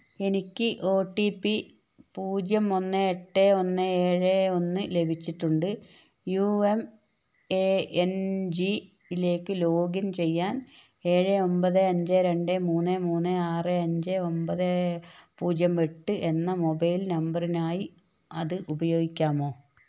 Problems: none marked